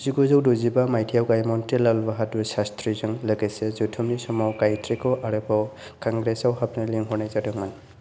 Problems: none marked